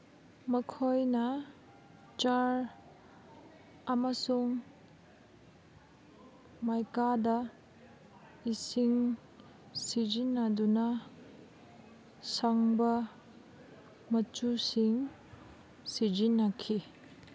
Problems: constant background noise